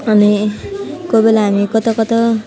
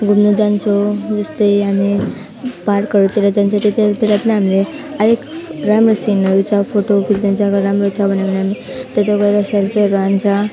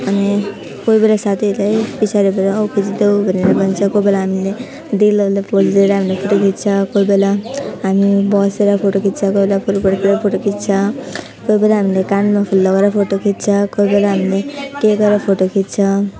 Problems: constant background noise